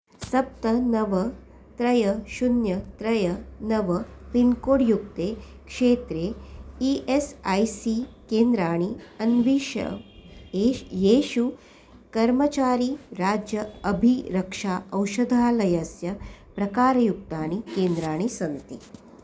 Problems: background sounds at intervals